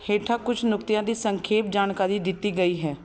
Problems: constant background noise